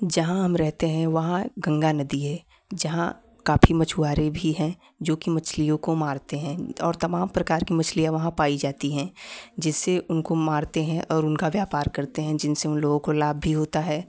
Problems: background sounds at intervals